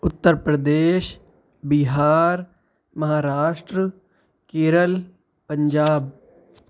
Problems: background sounds at intervals